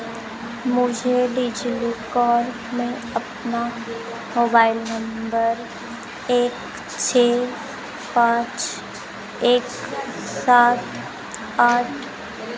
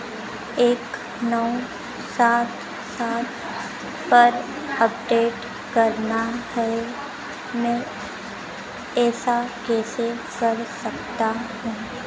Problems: constant background noise